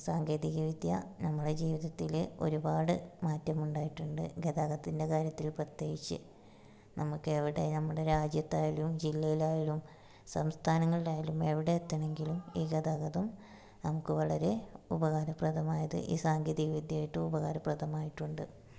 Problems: low volume